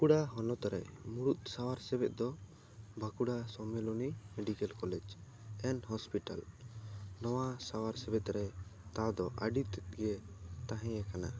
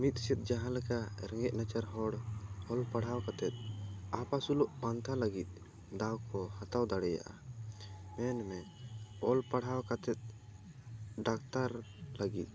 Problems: background sounds at intervals